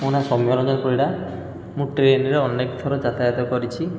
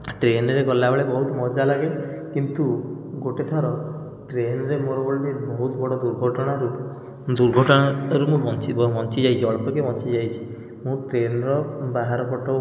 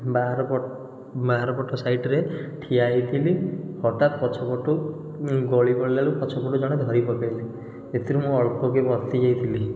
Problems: constant background noise